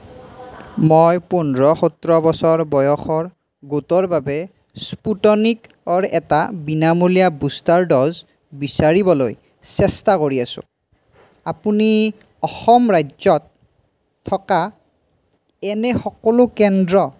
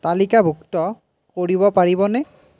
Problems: background sounds at intervals